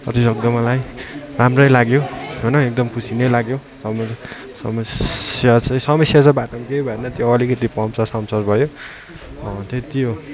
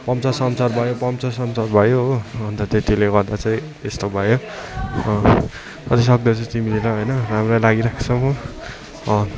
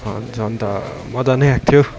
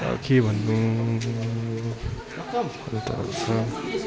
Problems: constant background noise, continuous background conversations